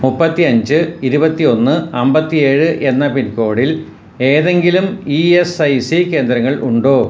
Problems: background sounds at intervals